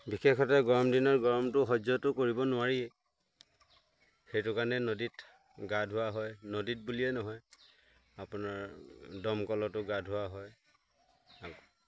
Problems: constant background noise